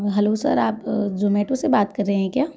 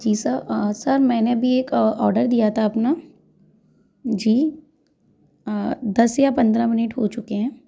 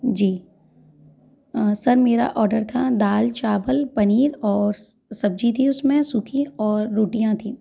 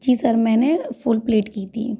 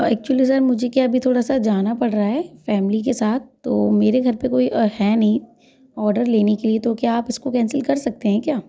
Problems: constant background noise, continuous background conversations